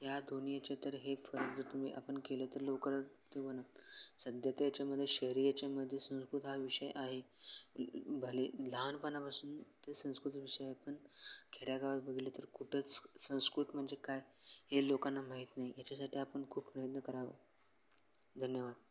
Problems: none marked